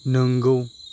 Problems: constant background noise